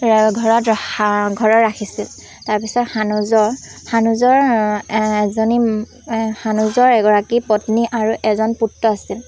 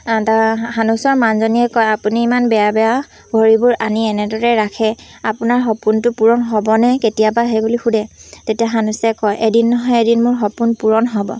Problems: constant background noise, background conversations at intervals